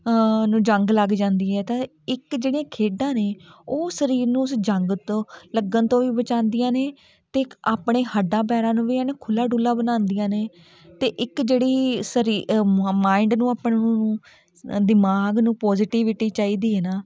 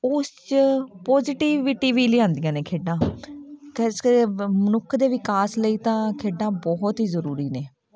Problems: continuous background conversations